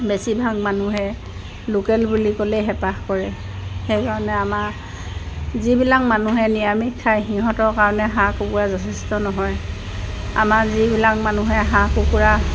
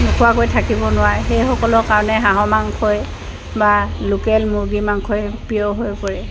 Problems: none marked